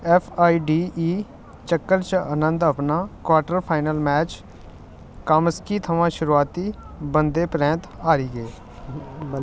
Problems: constant background noise